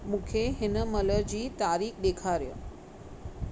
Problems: constant background noise